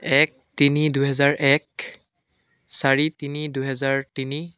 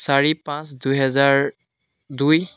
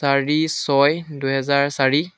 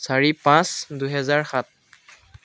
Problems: background conversations at intervals